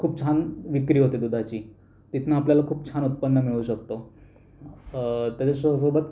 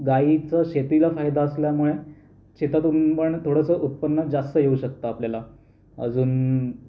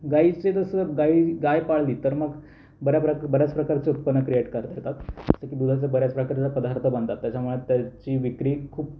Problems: background sounds at intervals